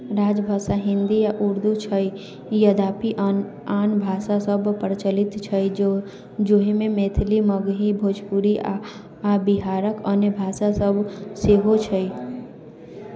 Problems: continuous background conversations